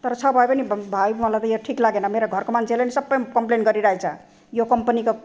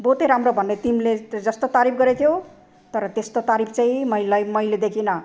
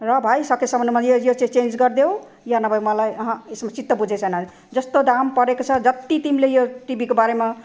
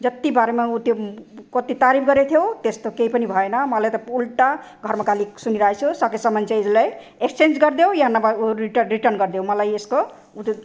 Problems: none marked